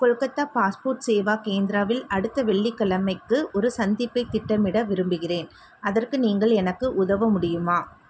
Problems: none marked